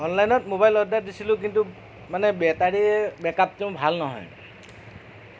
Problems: background sounds at intervals